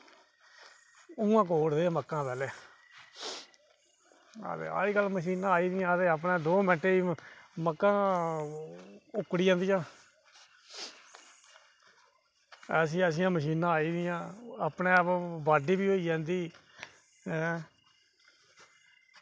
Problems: none marked